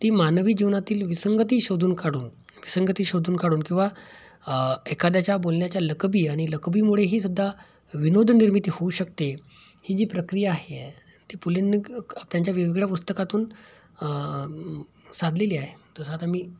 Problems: background sounds at intervals